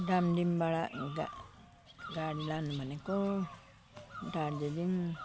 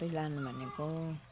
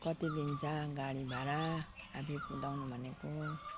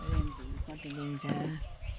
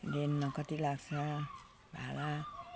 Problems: none marked